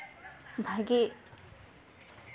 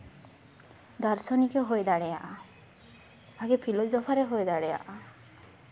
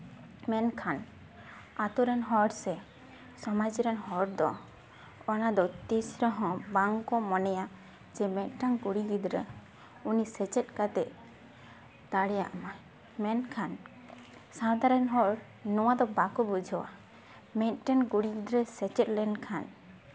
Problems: background sounds at intervals, background conversations at intervals